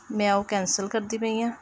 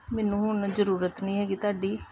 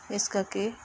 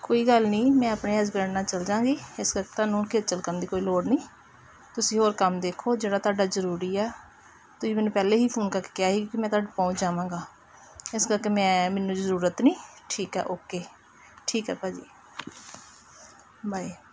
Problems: background conversations at intervals